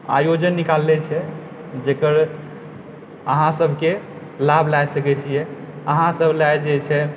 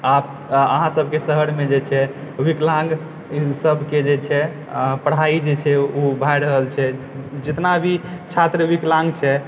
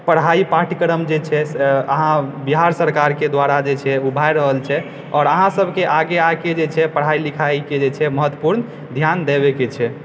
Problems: background sounds at intervals